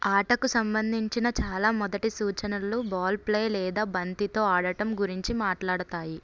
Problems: none marked